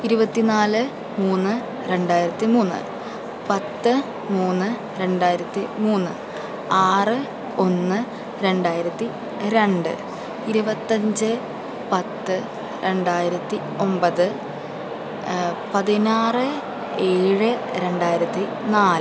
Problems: constant background noise